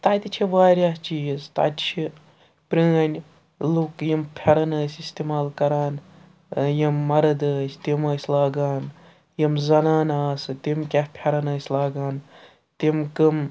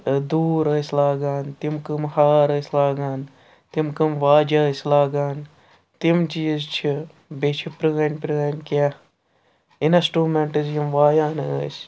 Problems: background sounds at intervals